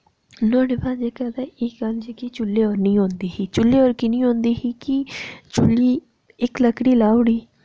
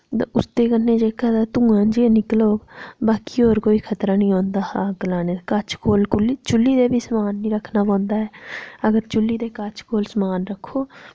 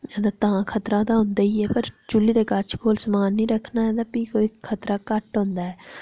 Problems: none marked